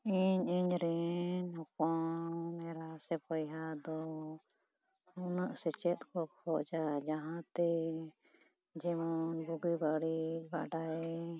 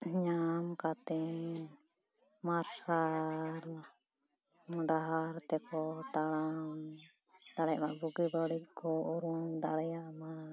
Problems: background conversations at intervals